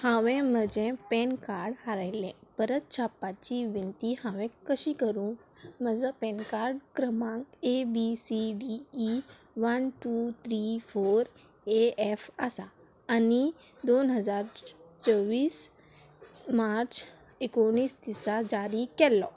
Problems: none marked